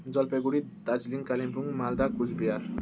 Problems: none marked